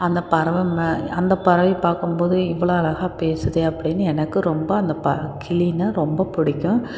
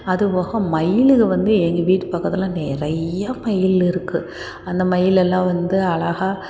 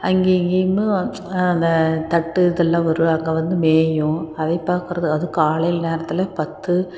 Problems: constant background noise